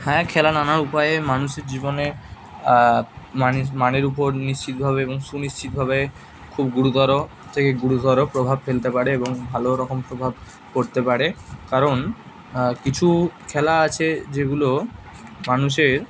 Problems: constant background noise, background conversations at intervals